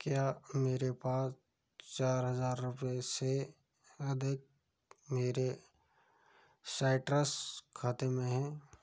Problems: low volume